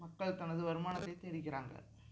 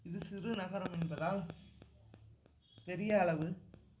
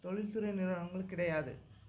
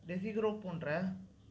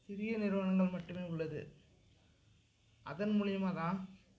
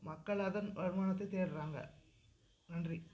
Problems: background sounds at intervals, low volume